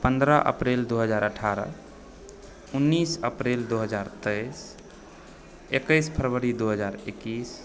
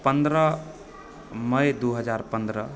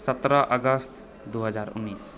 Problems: background sounds at intervals, background conversations at intervals